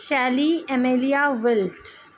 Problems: constant background noise